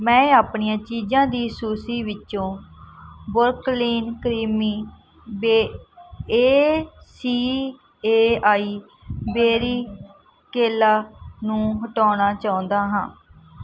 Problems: background sounds at intervals